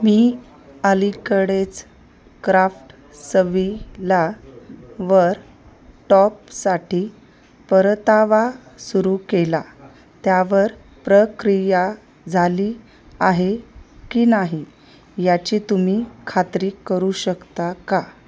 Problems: constant background noise, background conversations at intervals